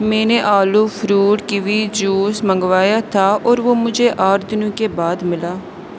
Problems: none marked